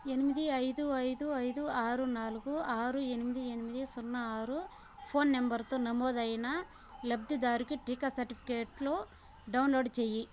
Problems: constant background noise